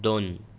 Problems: none marked